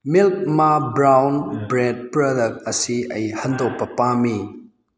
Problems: background conversations at intervals